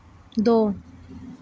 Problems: none marked